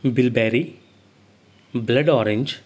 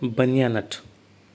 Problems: none marked